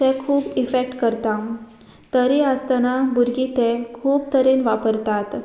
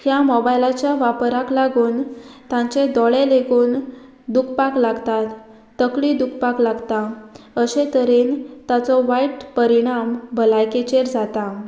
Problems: none marked